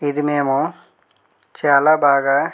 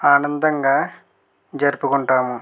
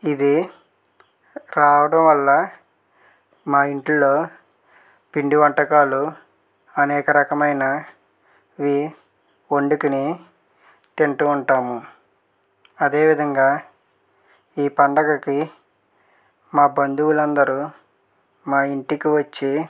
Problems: none marked